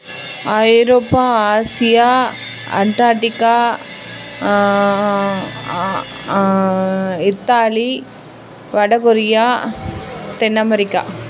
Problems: constant background noise